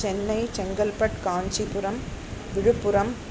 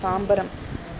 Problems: constant background noise